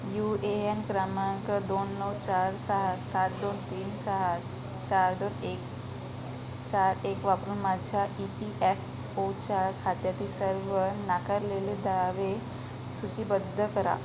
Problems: constant background noise